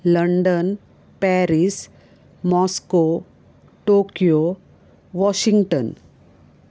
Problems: none marked